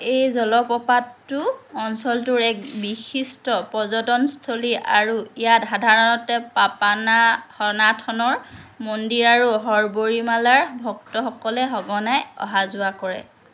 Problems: none marked